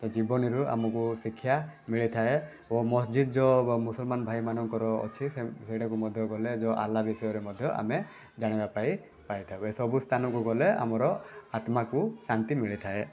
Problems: background sounds at intervals